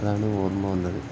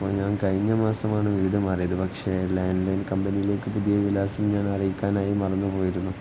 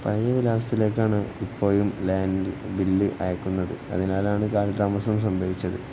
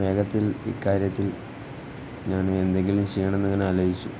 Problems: constant background noise